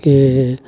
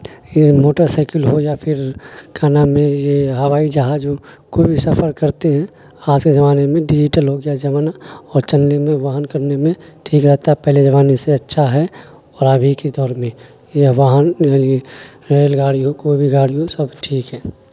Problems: constant background noise